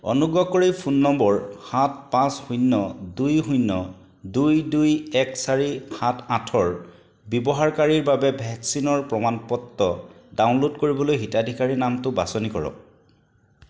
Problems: none marked